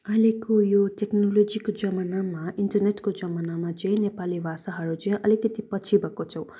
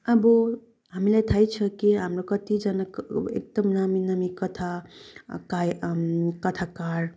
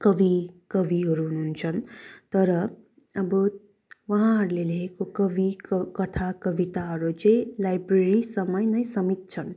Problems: none marked